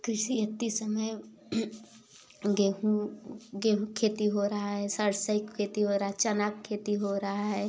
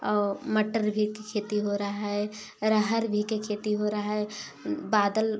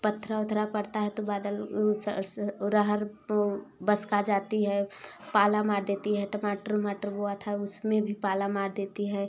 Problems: none marked